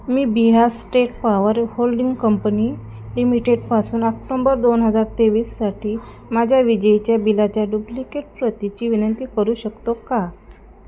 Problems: constant background noise